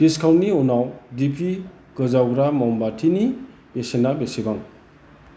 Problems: constant background noise